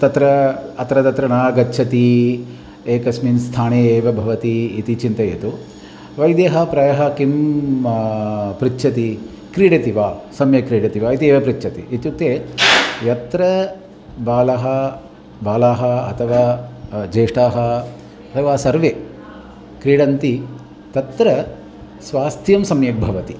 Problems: constant background noise